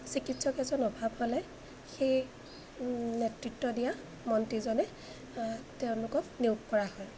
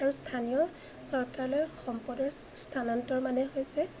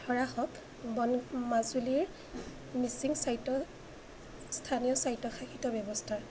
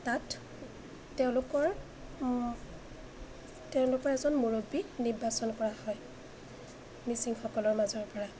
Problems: constant background noise